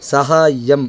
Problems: constant background noise